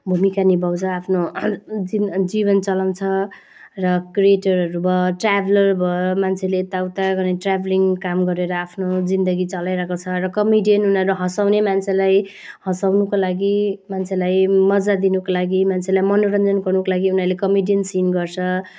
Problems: none marked